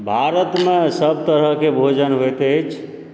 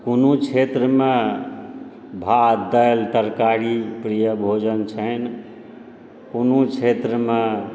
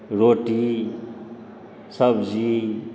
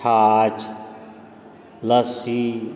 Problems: background sounds at intervals